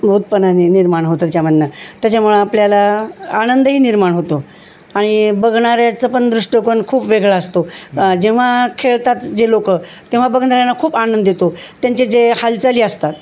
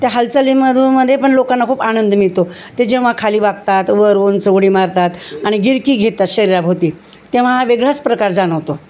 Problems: constant background noise